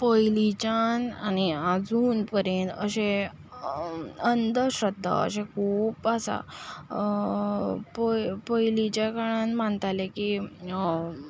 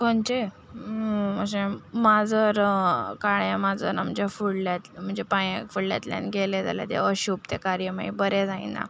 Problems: none marked